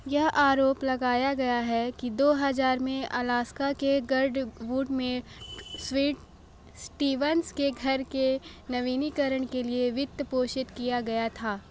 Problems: none marked